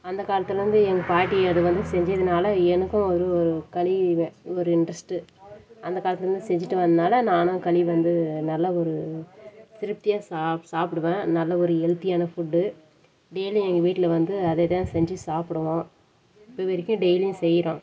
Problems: none marked